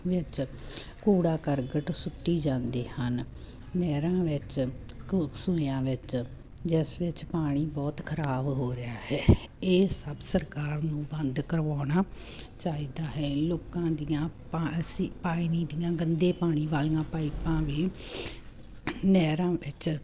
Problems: none marked